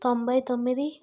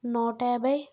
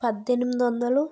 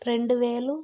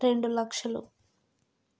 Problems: none marked